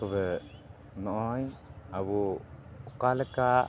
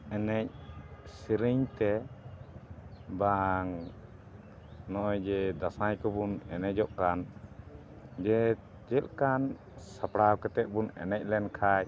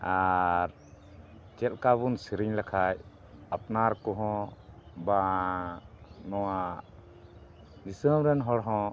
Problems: background sounds at intervals